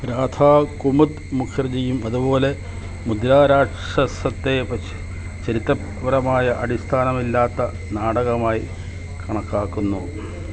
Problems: constant background noise